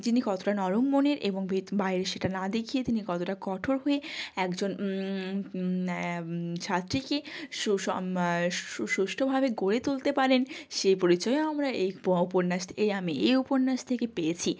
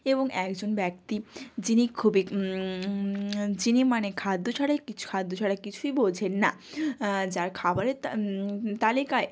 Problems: background sounds at intervals